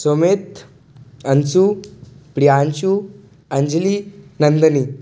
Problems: background sounds at intervals